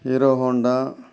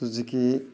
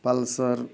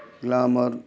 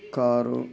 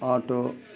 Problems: background conversations at intervals